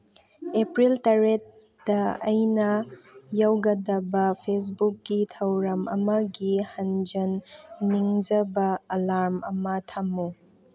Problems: none marked